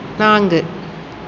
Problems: constant background noise